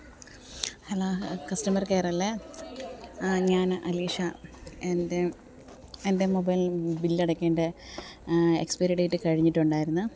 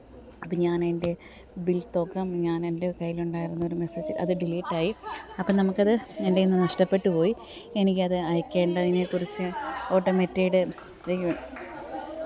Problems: low volume